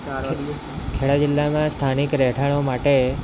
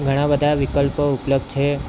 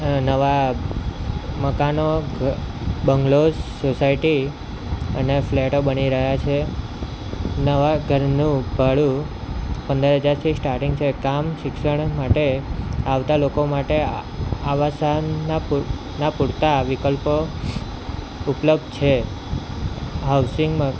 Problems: constant background noise